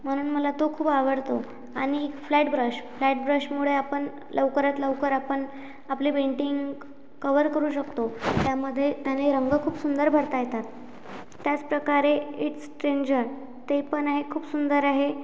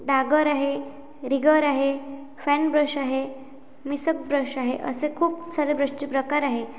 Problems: background sounds at intervals